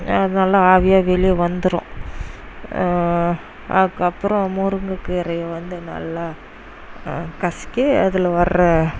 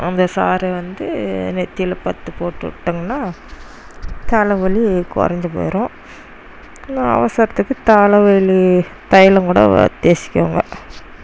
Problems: none marked